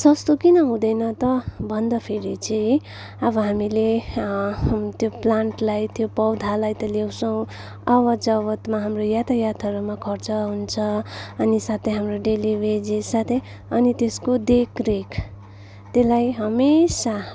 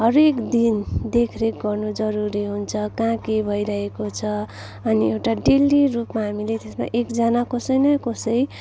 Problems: constant background noise